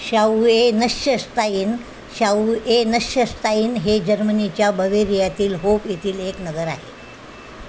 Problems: constant background noise